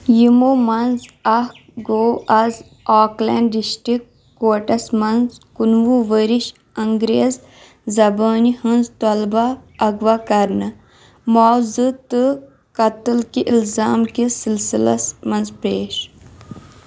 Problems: background sounds at intervals